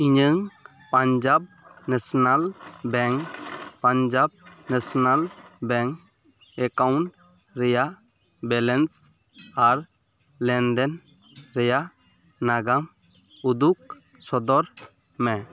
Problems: none marked